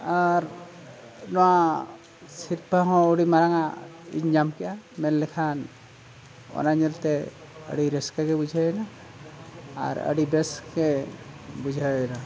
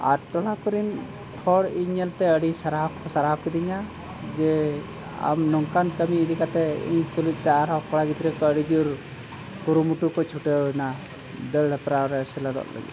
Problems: constant background noise